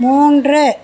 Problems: background conversations at intervals